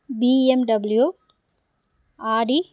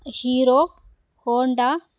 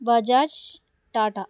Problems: background sounds at intervals